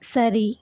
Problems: none marked